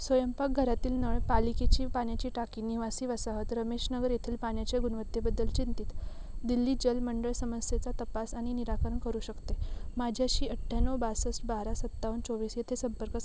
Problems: constant background noise